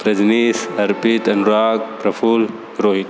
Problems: background sounds at intervals